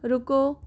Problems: constant background noise